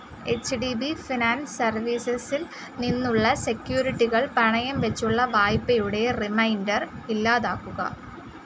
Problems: constant background noise